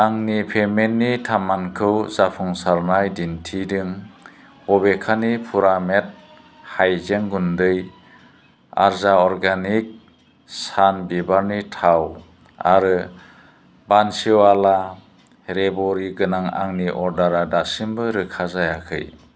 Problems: constant background noise